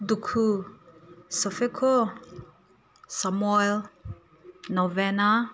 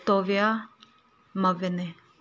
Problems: low volume